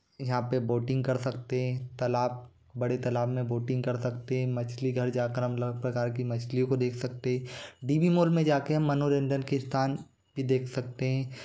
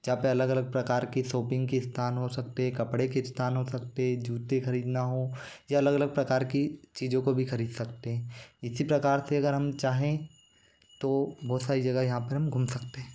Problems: constant background noise